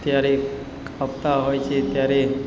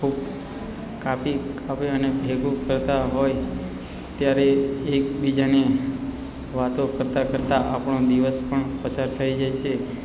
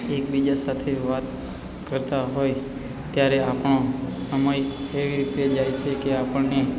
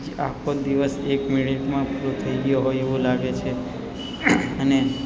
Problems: constant background noise